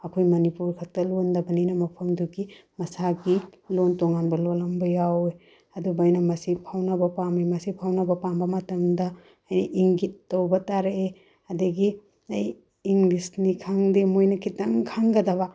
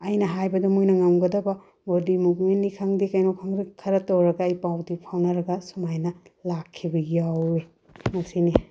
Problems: none marked